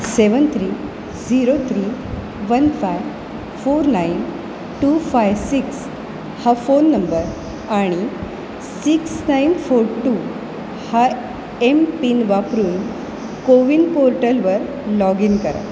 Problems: constant background noise